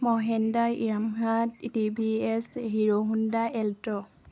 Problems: constant background noise, background conversations at intervals